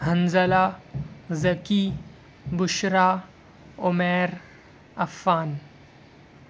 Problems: background sounds at intervals